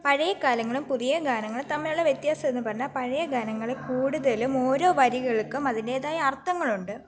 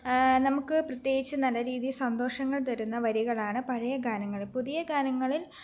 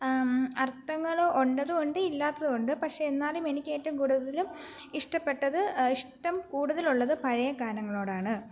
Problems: background conversations at intervals